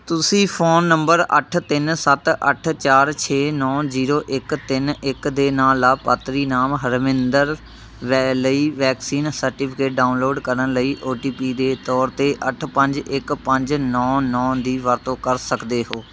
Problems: constant background noise